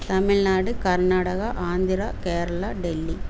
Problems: none marked